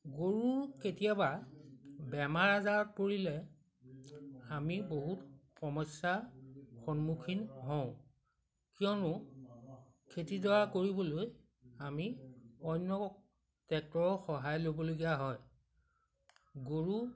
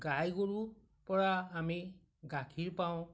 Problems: background sounds at intervals